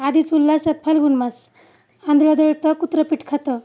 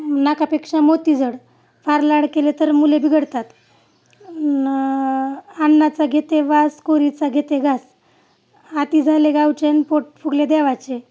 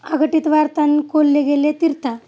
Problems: none marked